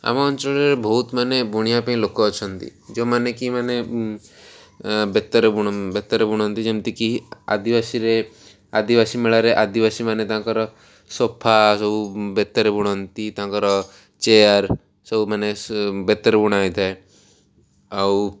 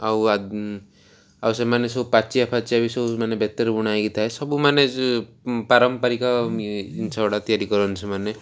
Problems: none marked